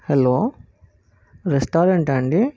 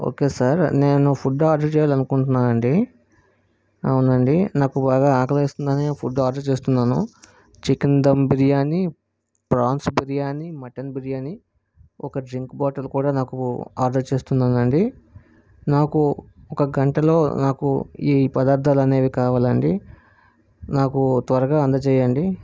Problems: none marked